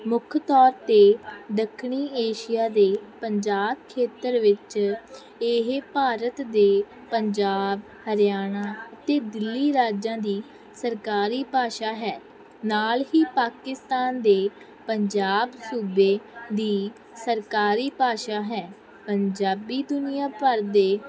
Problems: constant background noise